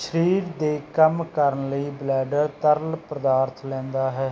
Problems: background sounds at intervals